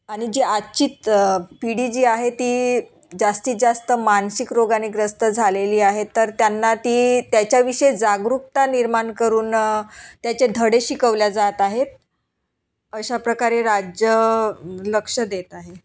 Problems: background sounds at intervals